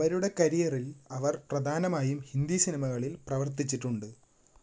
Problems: background sounds at intervals